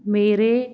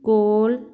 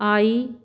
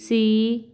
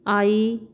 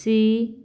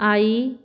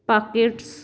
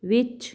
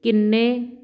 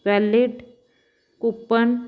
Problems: background sounds at intervals